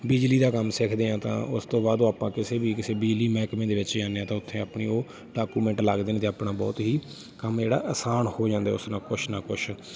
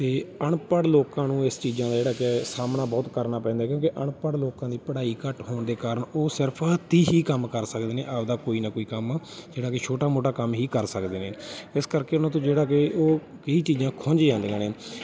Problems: background sounds at intervals, background conversations at intervals